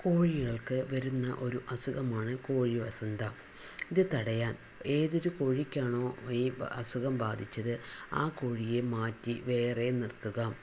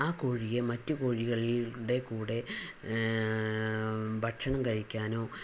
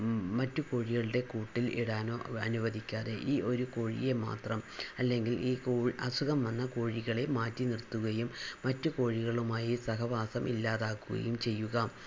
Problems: constant background noise, low volume